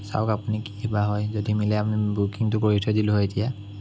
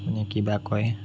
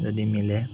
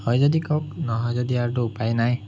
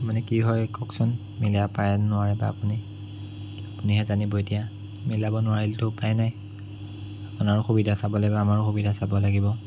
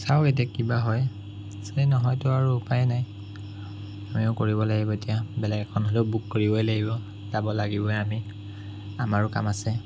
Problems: none marked